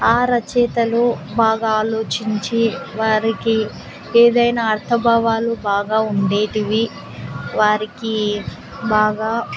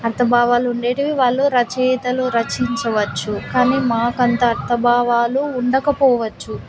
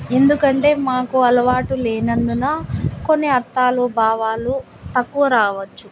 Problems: constant background noise